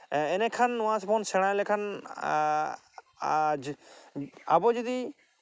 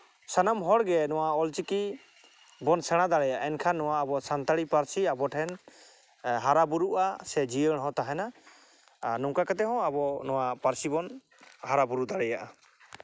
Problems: none marked